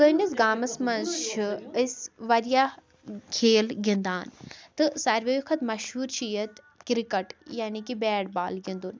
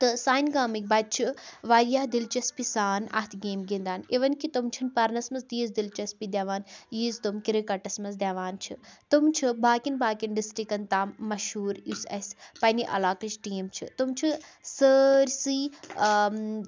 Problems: background sounds at intervals